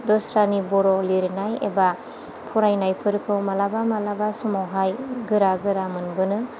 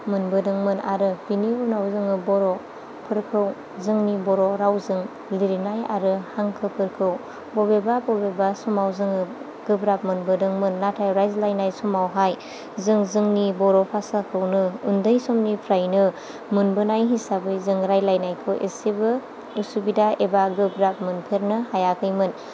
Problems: none marked